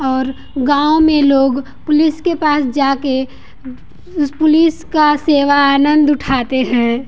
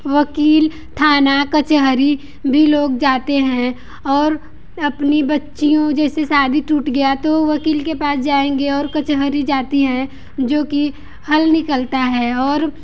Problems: none marked